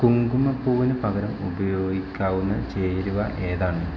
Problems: constant background noise